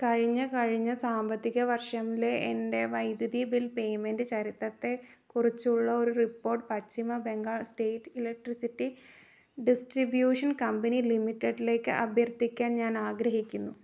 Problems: none marked